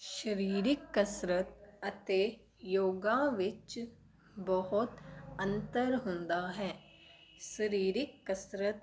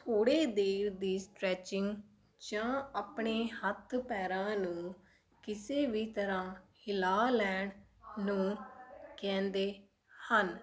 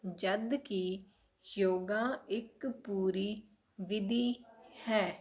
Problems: background sounds at intervals